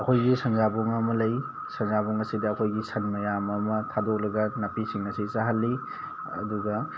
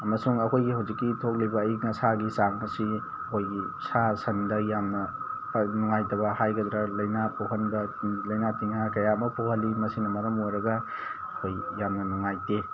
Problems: constant background noise